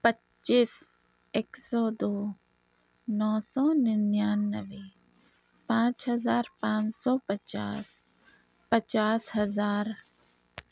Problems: none marked